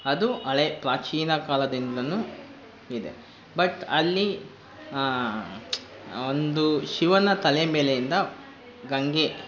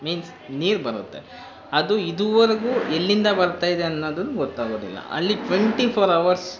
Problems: constant background noise